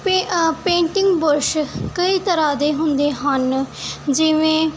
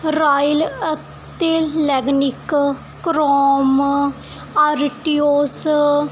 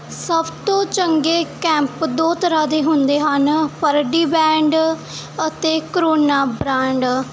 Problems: none marked